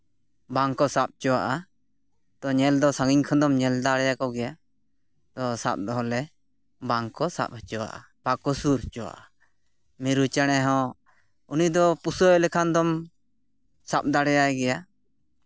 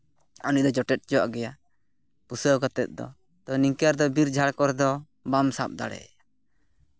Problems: none marked